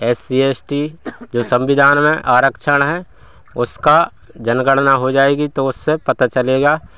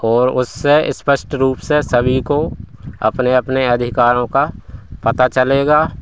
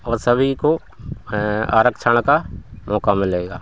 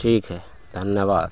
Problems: none marked